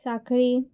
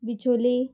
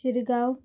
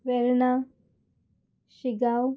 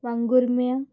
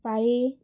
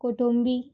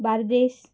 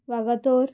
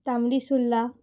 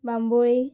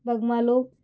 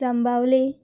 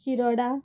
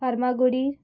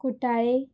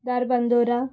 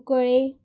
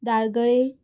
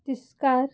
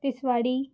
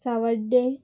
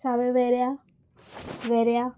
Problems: background sounds at intervals